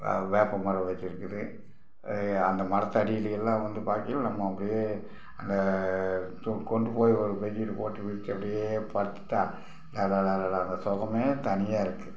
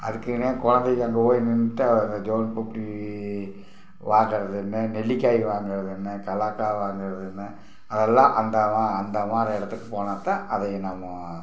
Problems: background sounds at intervals